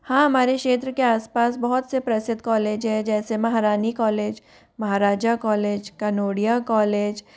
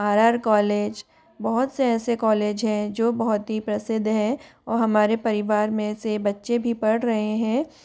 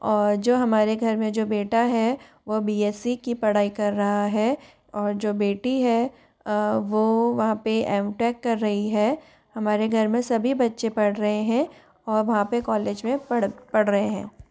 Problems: none marked